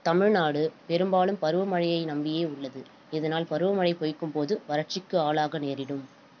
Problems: constant background noise